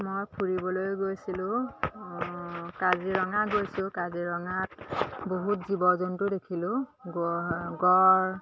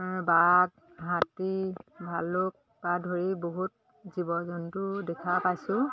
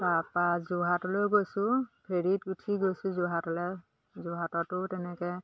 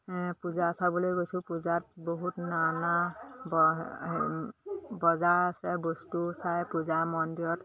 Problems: constant background noise, background conversations at intervals